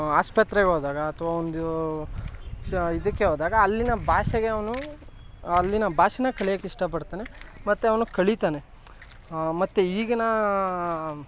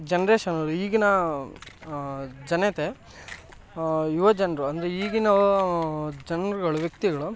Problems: background sounds at intervals